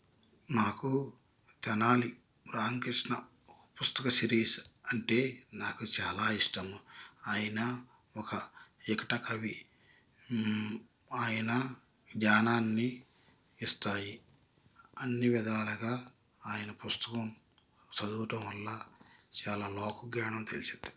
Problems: constant background noise, low volume